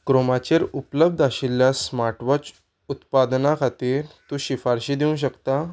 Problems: none marked